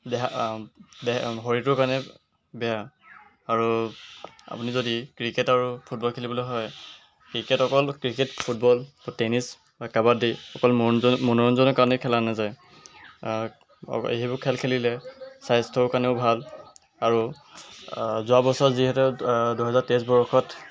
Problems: background sounds at intervals